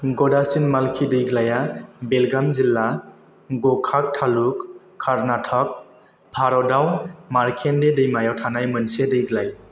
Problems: constant background noise